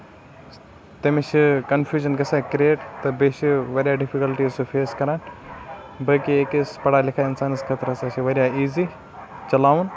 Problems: constant background noise